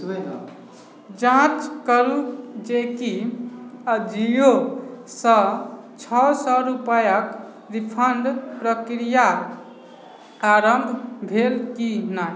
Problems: background sounds at intervals, background conversations at intervals